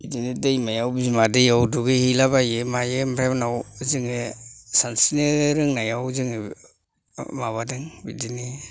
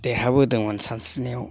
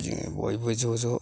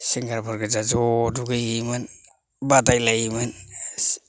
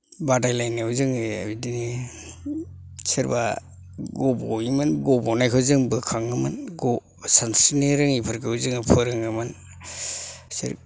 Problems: none marked